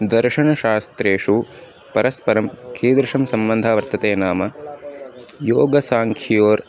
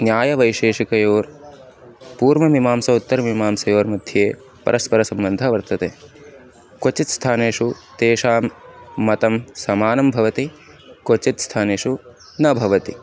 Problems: constant background noise